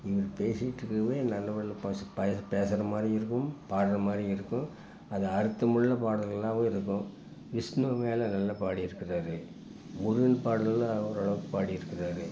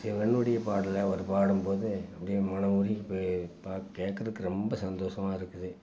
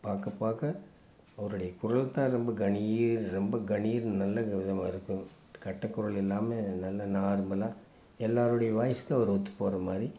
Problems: constant background noise